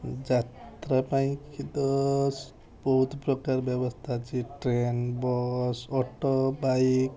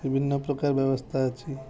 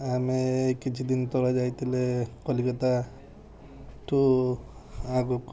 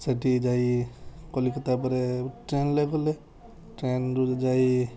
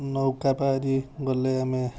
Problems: constant background noise, continuous background conversations